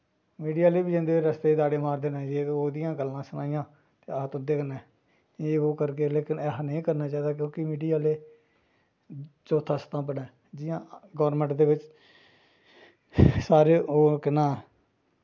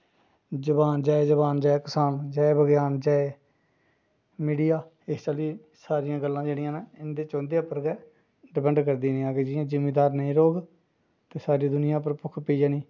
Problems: low volume